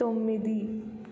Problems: low volume